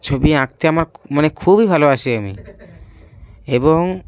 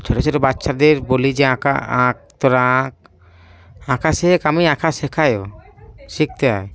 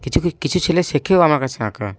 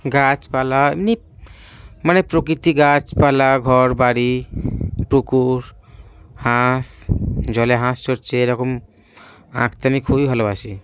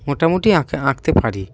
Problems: background sounds at intervals